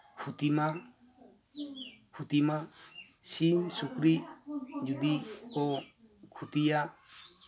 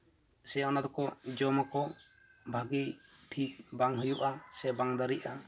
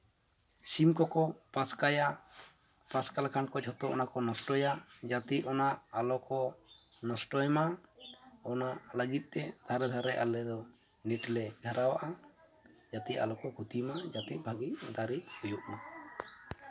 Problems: constant background noise, continuous background conversations